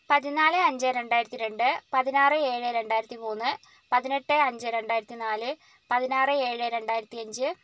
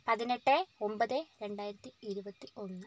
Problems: low volume